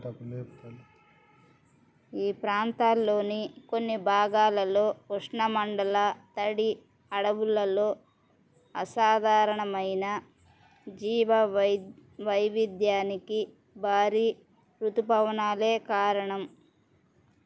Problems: none marked